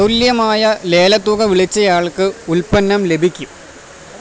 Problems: none marked